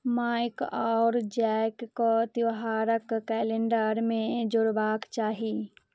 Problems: none marked